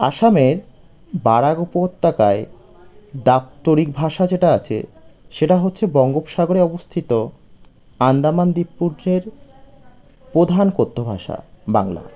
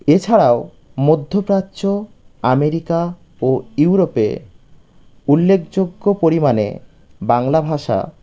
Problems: none marked